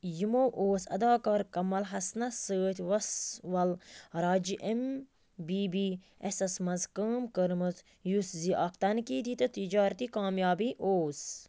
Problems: constant background noise